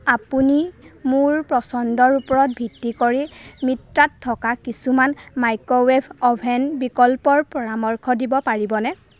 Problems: constant background noise, background conversations at intervals